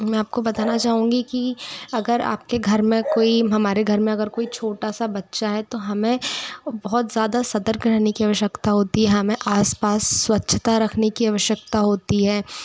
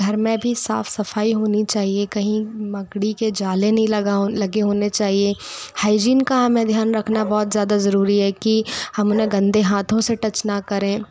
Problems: background conversations at intervals